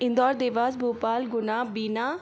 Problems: constant background noise